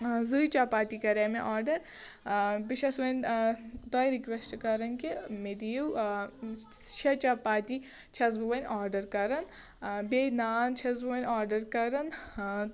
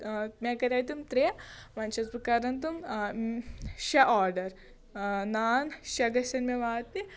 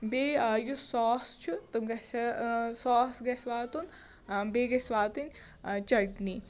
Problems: background sounds at intervals